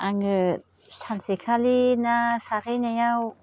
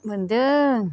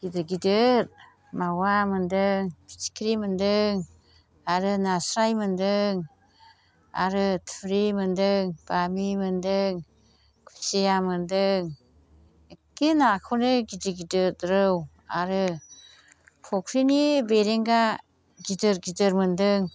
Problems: constant background noise